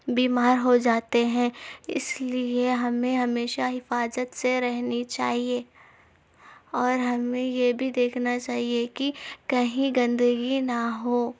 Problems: none marked